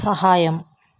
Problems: constant background noise